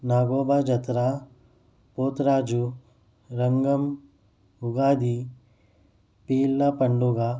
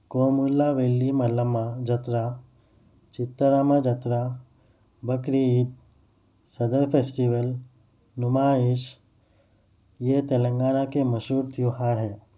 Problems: none marked